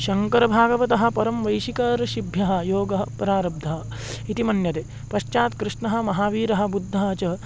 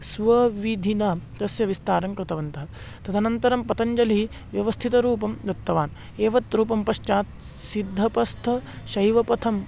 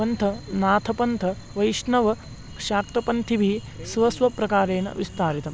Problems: none marked